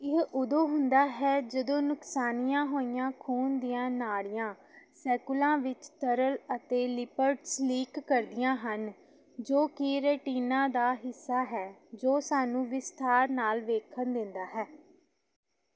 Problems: background sounds at intervals